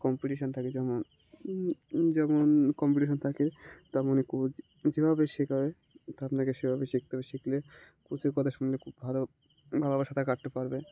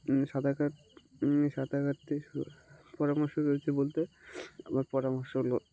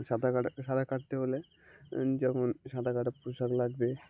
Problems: constant background noise